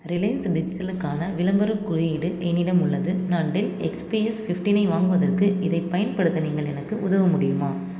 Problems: constant background noise